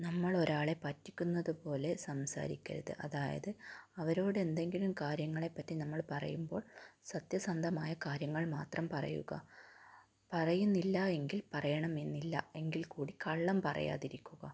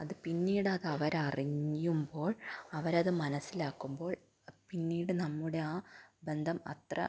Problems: low volume